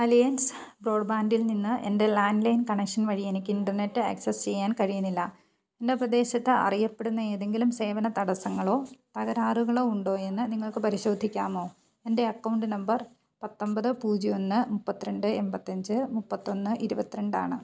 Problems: low volume